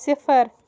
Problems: background sounds at intervals